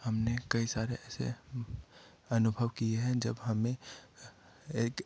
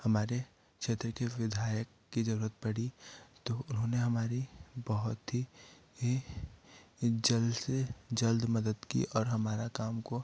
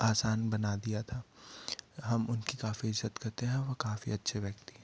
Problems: none marked